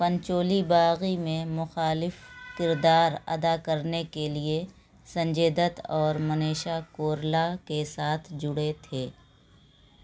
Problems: constant background noise